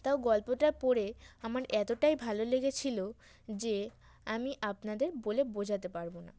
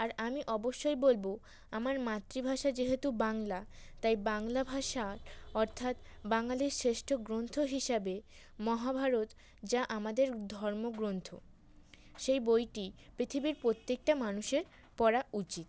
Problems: constant background noise